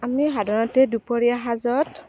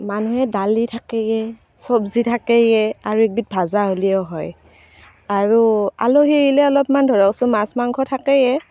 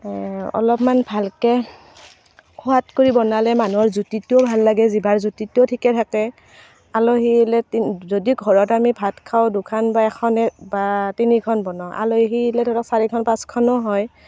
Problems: constant background noise